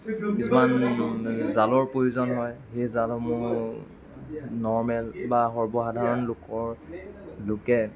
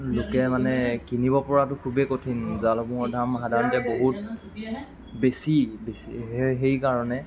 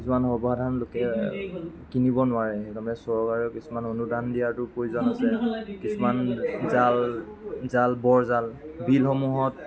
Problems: continuous background conversations